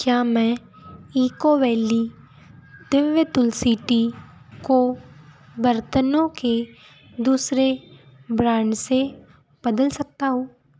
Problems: constant background noise